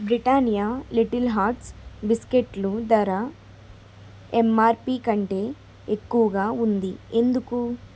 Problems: constant background noise